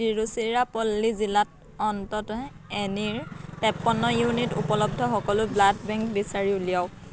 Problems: constant background noise, continuous background conversations